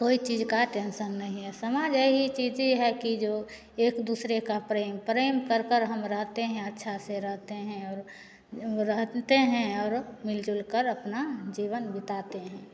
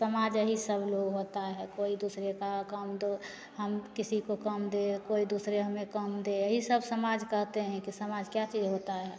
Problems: none marked